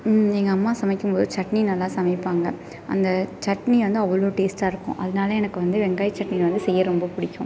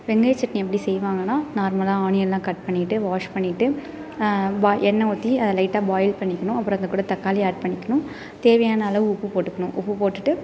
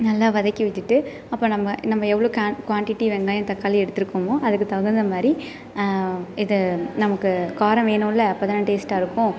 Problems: none marked